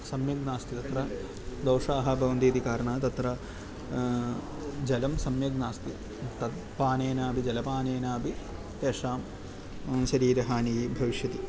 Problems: none marked